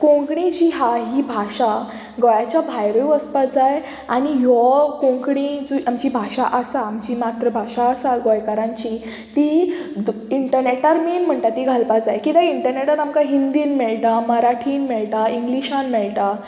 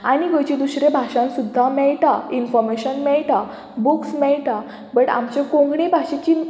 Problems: none marked